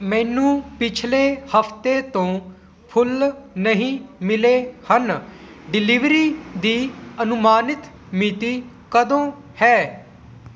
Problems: none marked